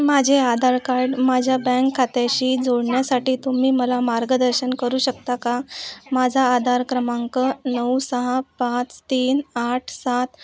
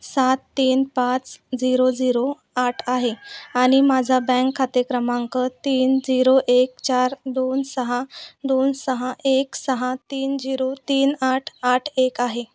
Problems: background sounds at intervals, background conversations at intervals